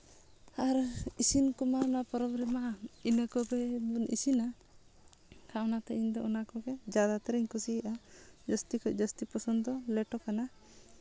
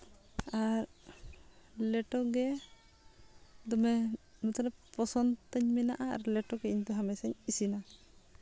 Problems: none marked